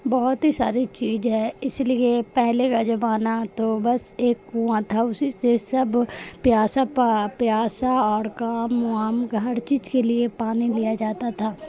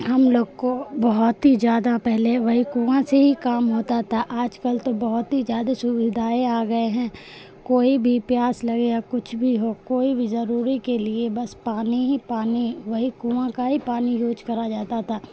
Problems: constant background noise